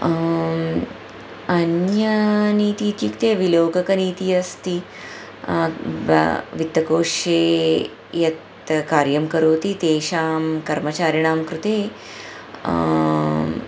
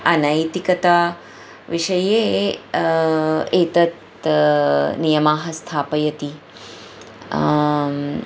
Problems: none marked